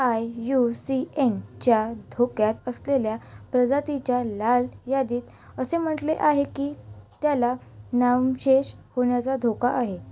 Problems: none marked